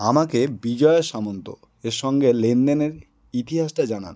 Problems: none marked